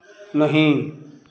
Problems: constant background noise, background conversations at intervals